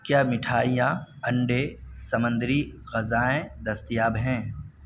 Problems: background sounds at intervals